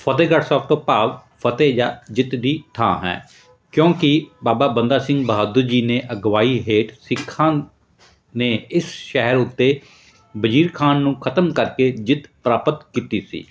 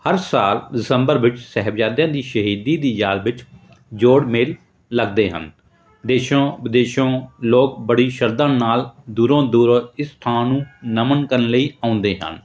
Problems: background sounds at intervals